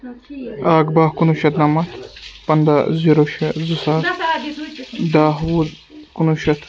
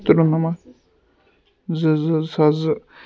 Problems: constant background noise, continuous background conversations